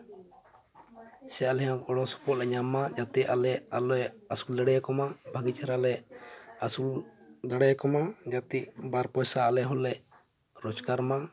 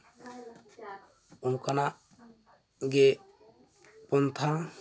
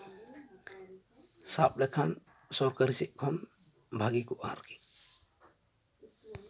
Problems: constant background noise, continuous background conversations